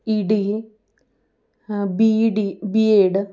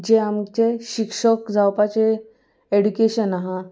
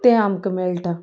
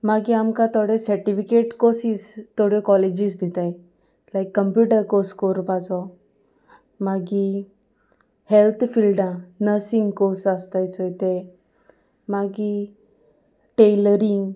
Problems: none marked